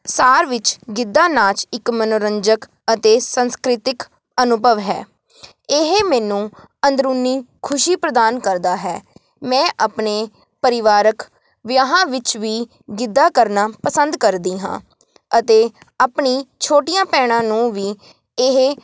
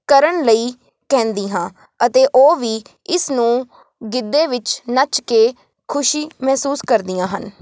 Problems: none marked